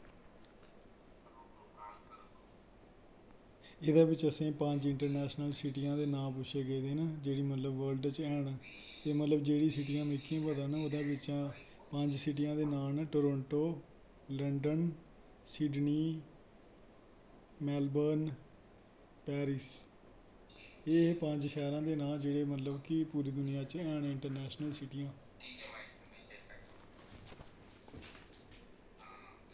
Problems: constant background noise, low volume